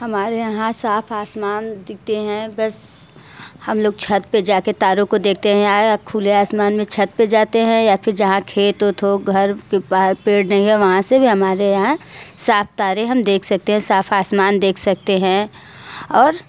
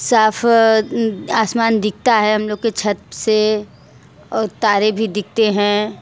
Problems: background conversations at intervals